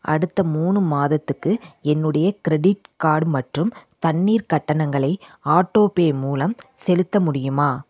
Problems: none marked